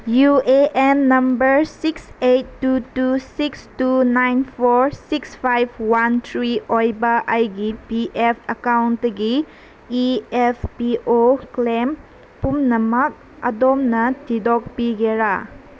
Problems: constant background noise